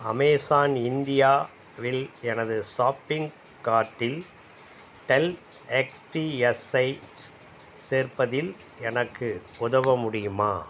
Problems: background sounds at intervals